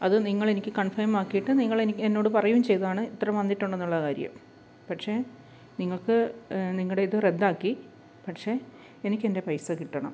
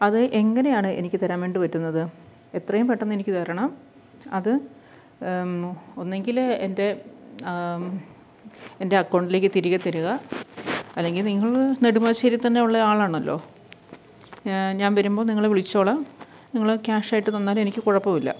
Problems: none marked